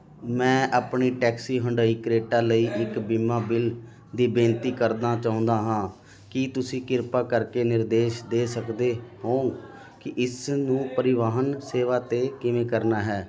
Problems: continuous background conversations